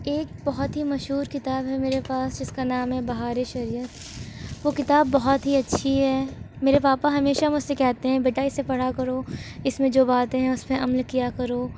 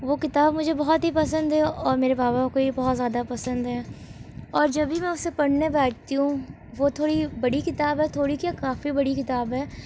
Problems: background sounds at intervals